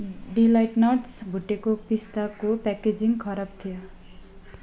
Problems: background sounds at intervals, low volume